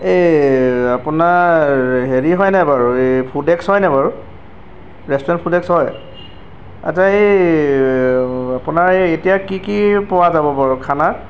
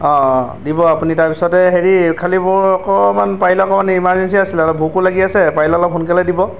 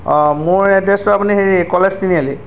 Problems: background sounds at intervals